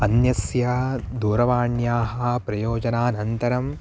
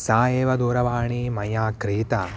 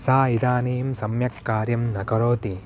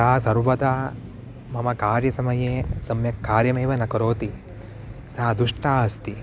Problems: constant background noise